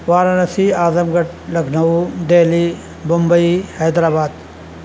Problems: constant background noise